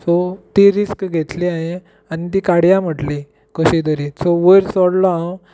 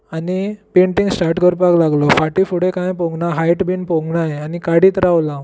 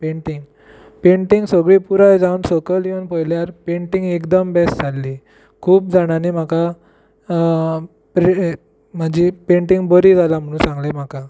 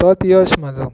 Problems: none marked